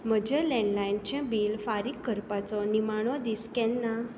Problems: constant background noise